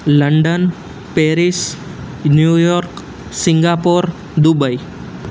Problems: none marked